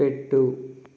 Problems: constant background noise